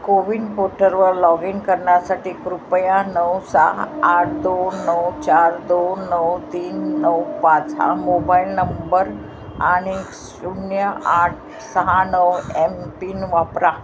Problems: constant background noise